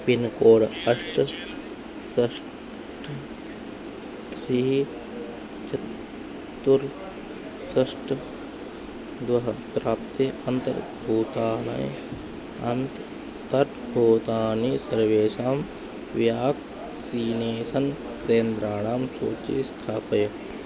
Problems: constant background noise, background conversations at intervals